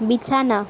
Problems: none marked